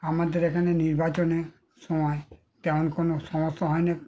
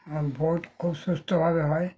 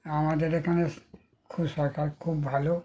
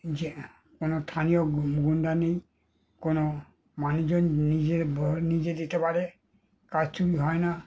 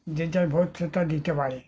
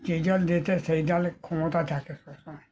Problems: continuous background conversations